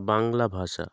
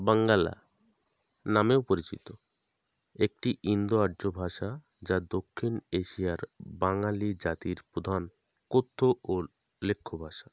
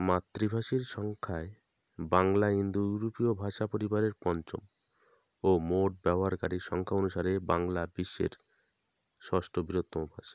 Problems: background sounds at intervals